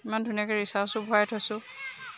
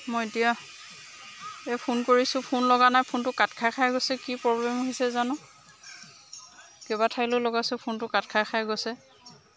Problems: constant background noise